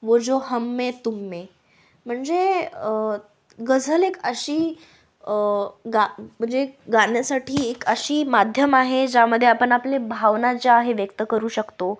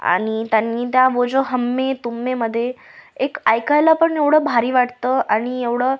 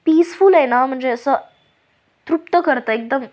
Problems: background sounds at intervals